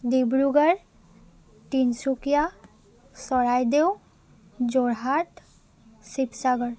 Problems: none marked